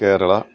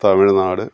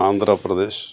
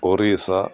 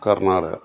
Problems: background conversations at intervals